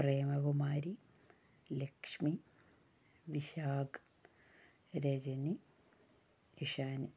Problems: low volume